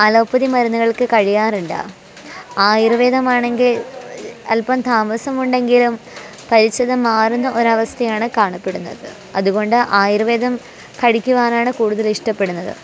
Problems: constant background noise